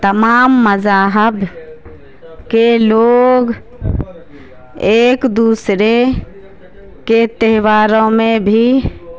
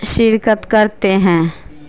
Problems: constant background noise